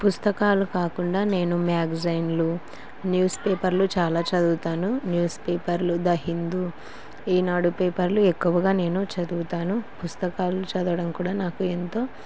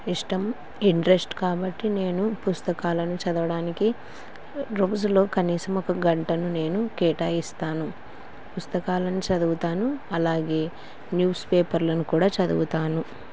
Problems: constant background noise